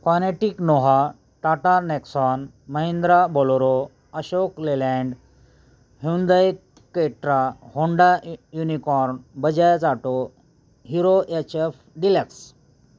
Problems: none marked